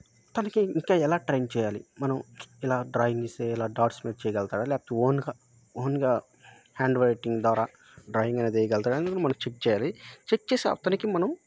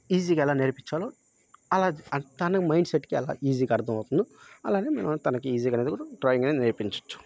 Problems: none marked